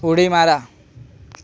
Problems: constant background noise, continuous background conversations